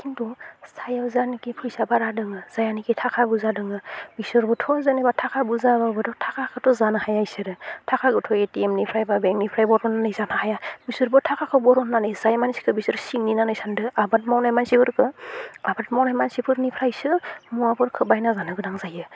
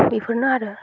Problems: low volume